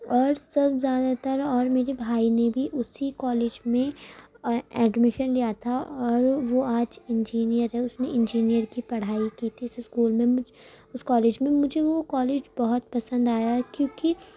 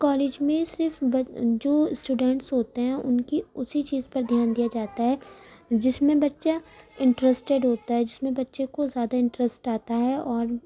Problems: none marked